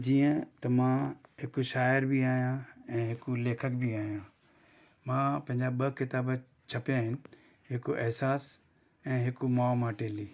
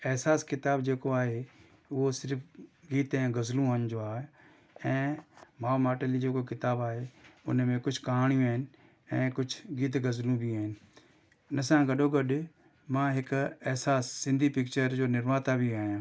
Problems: none marked